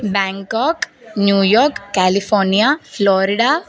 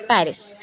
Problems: background sounds at intervals, background conversations at intervals